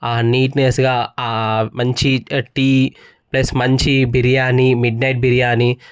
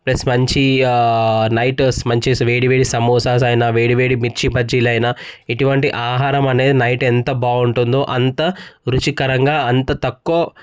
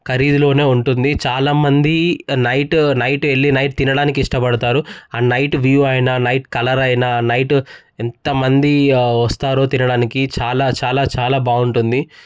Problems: background sounds at intervals